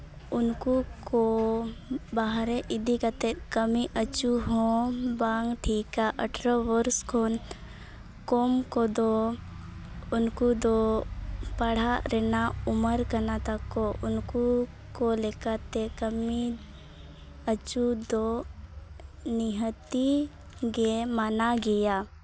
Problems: background sounds at intervals